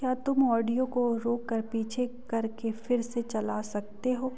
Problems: background sounds at intervals